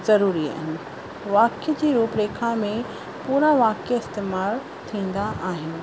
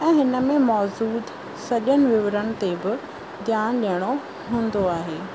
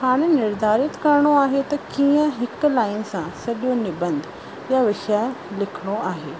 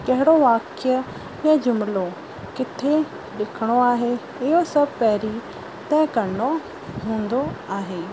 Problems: constant background noise